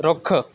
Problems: constant background noise